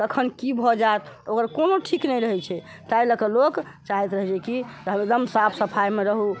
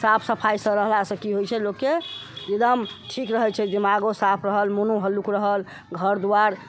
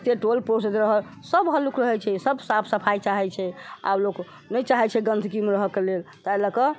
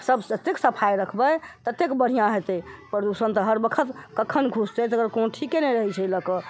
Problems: constant background noise